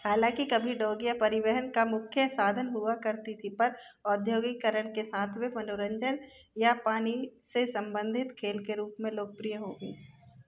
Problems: constant background noise, background conversations at intervals